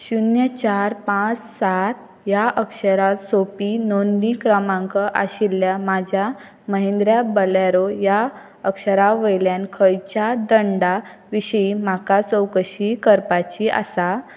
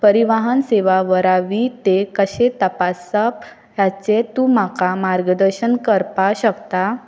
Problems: background sounds at intervals